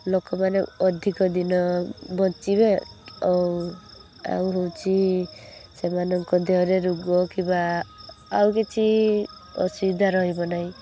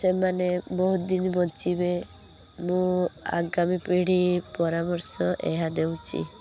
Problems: constant background noise